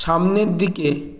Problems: constant background noise